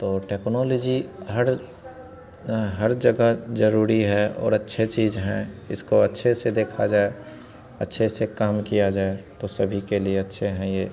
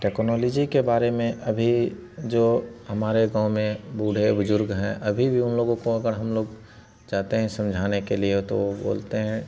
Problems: none marked